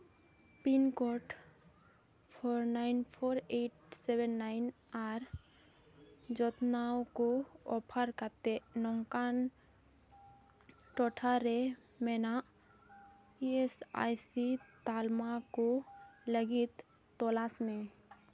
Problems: none marked